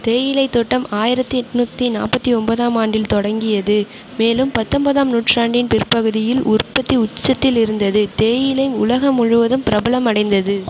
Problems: none marked